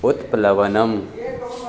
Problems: constant background noise, continuous background conversations